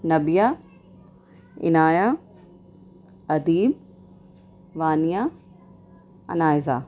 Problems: none marked